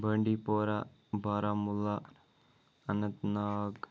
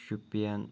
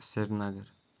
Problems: background sounds at intervals